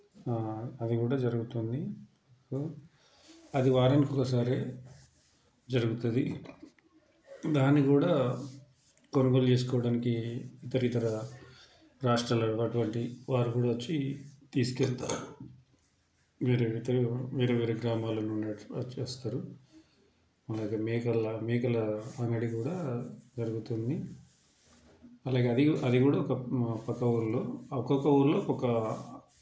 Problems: constant background noise, background conversations at intervals